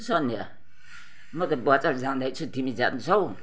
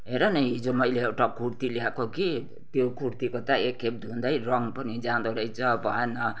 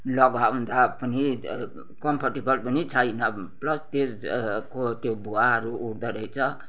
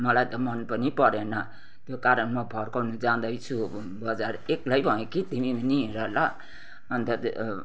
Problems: none marked